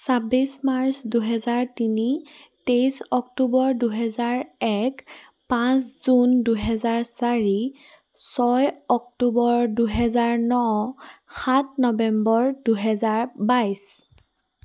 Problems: none marked